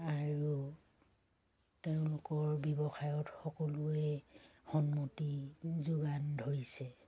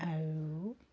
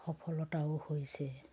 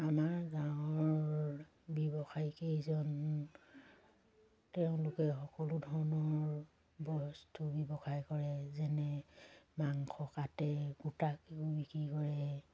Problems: none marked